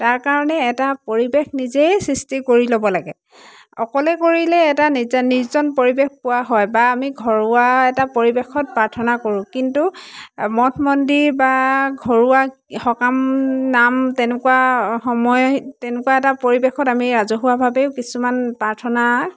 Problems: constant background noise, background conversations at intervals